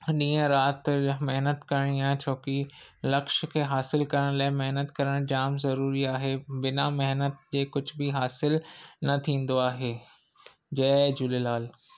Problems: none marked